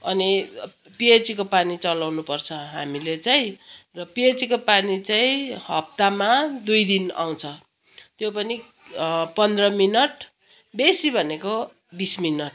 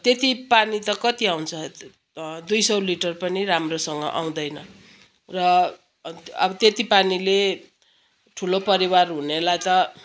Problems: background sounds at intervals, background conversations at intervals